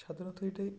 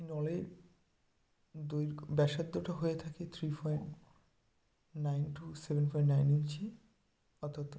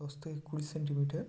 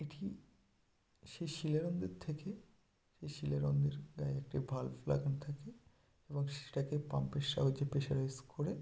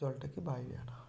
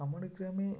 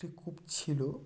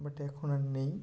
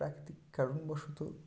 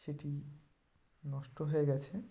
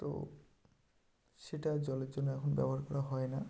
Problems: none marked